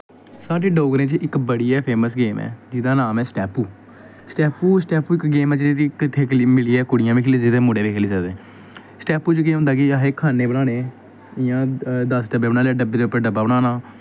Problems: background sounds at intervals